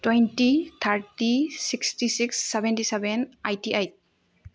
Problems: low volume